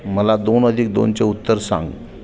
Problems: background sounds at intervals